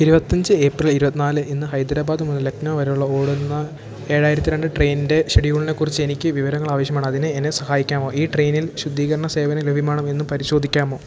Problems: none marked